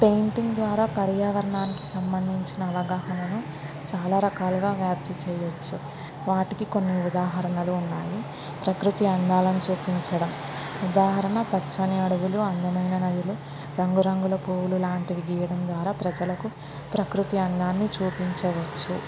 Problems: constant background noise